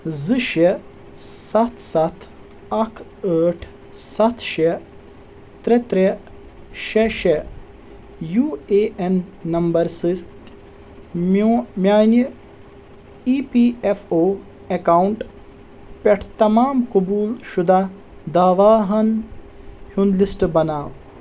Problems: constant background noise